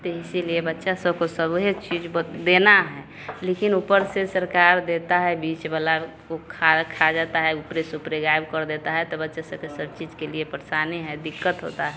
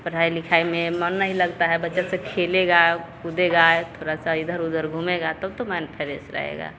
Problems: constant background noise